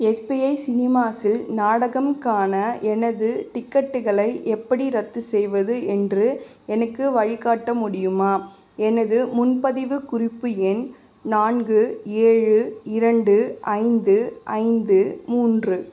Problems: none marked